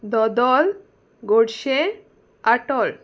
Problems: none marked